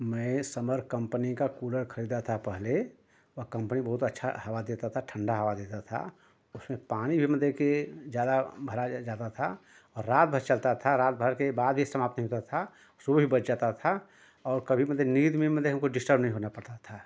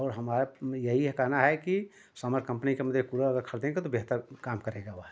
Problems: constant background noise